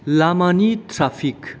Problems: low volume